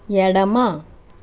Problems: none marked